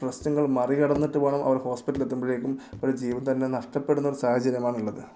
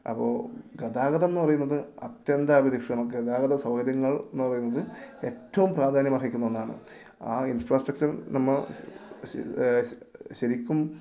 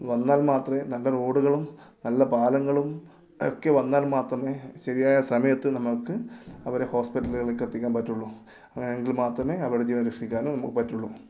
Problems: low volume